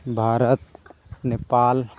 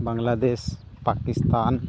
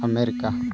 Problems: background sounds at intervals